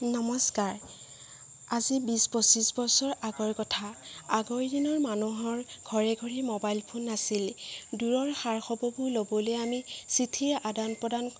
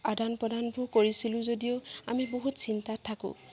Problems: background sounds at intervals, background conversations at intervals